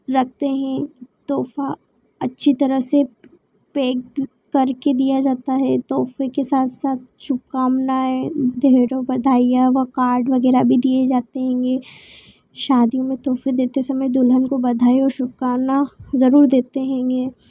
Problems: constant background noise